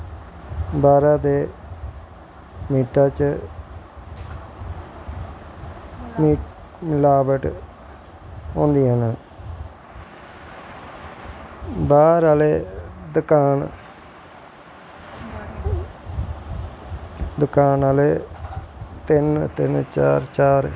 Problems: constant background noise